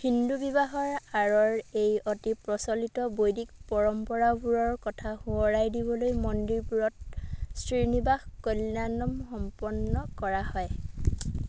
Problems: background sounds at intervals